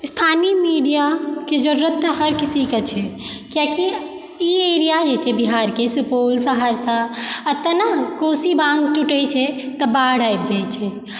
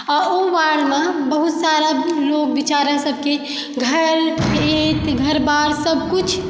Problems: background sounds at intervals